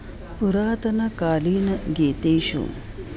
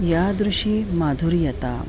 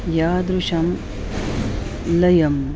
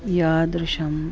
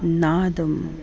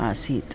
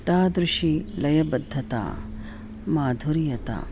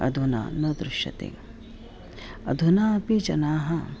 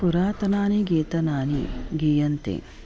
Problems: background sounds at intervals